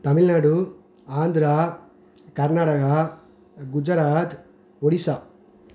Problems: none marked